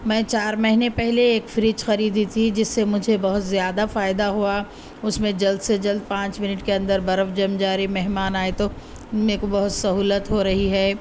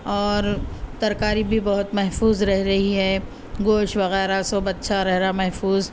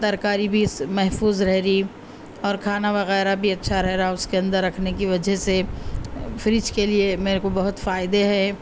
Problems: none marked